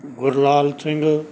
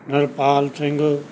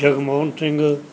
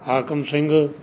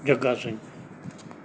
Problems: background sounds at intervals